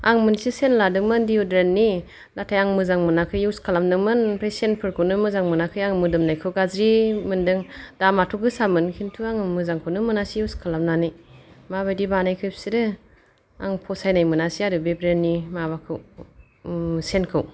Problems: none marked